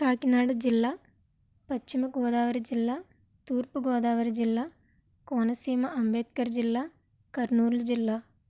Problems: none marked